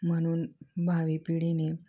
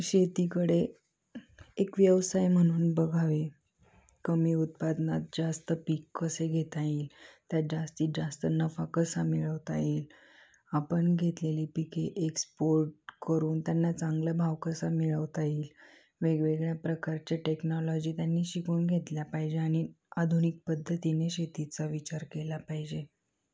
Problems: background sounds at intervals